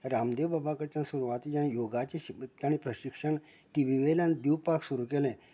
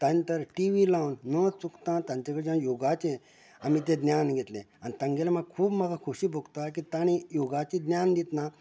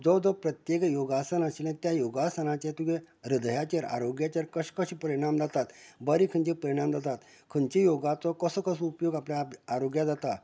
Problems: constant background noise